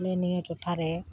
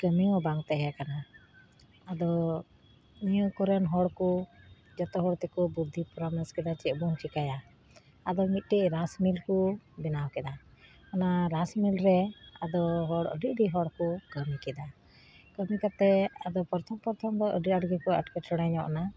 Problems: constant background noise